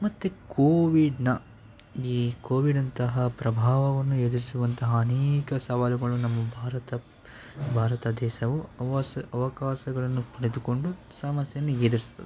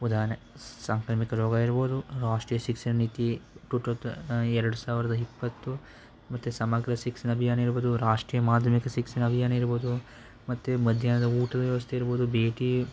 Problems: background sounds at intervals